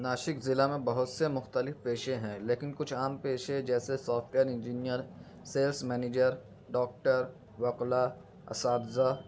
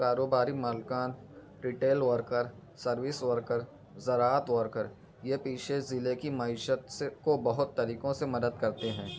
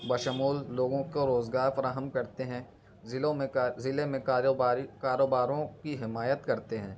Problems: background sounds at intervals